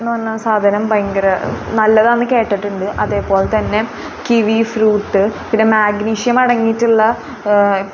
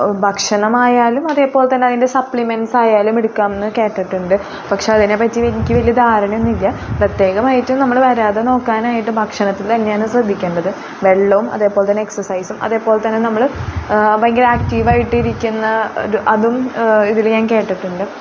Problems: constant background noise